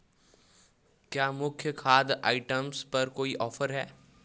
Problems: background sounds at intervals